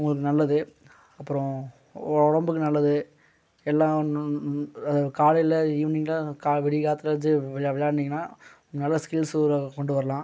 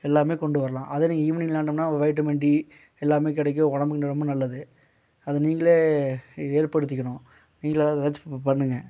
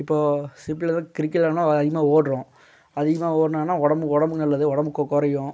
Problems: background sounds at intervals